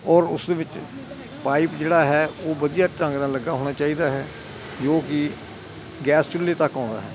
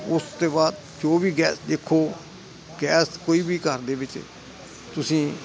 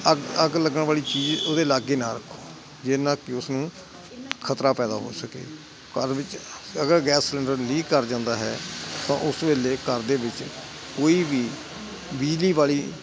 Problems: constant background noise